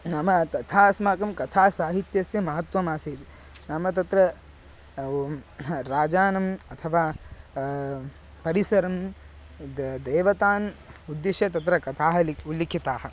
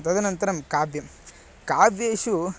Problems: background sounds at intervals